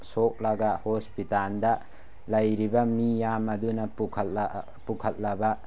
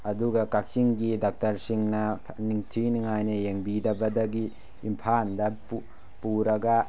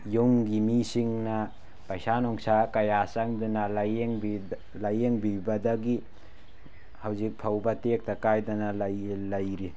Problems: none marked